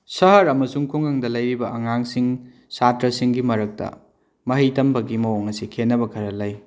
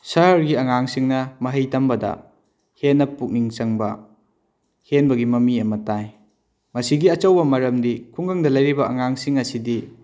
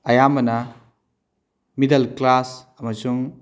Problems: none marked